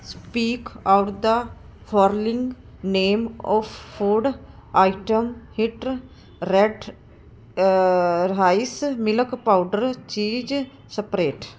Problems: none marked